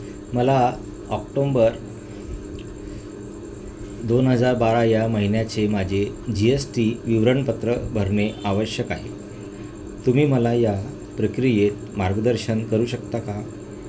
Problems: constant background noise